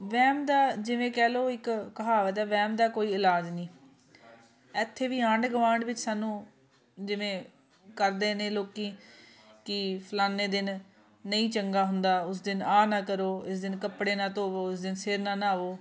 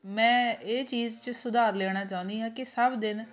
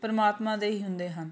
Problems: background sounds at intervals, continuous background conversations